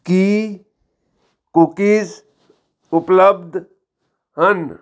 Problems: background sounds at intervals